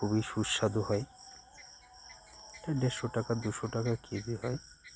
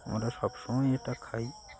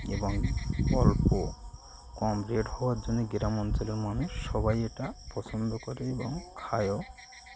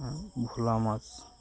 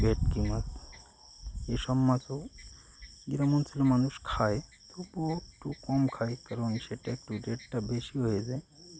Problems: constant background noise, continuous background conversations